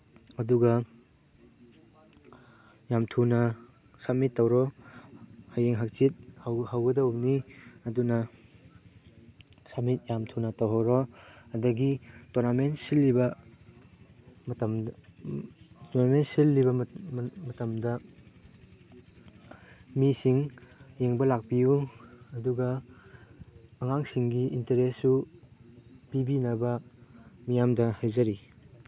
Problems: none marked